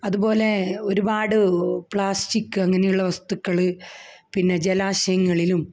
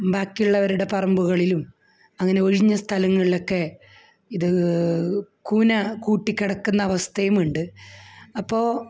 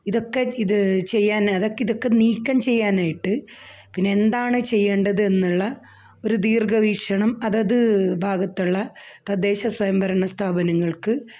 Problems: none marked